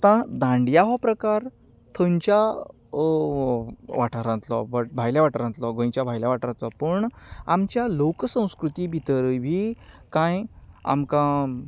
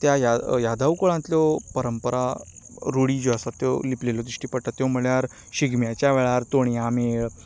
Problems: constant background noise